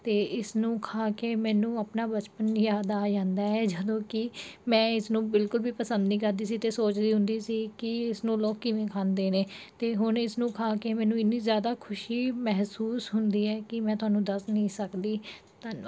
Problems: background sounds at intervals